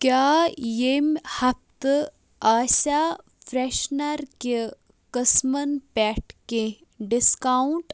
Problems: none marked